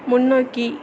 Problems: constant background noise